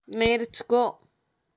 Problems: constant background noise